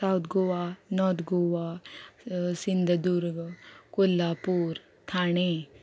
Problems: constant background noise